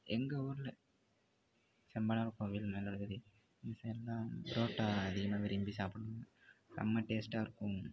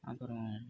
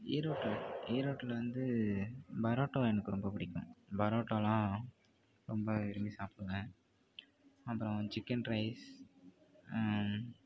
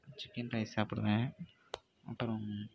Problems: constant background noise, low volume